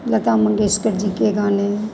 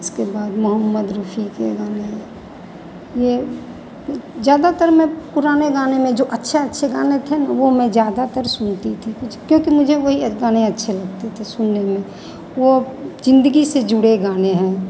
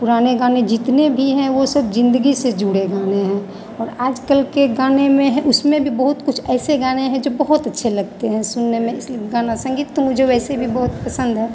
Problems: none marked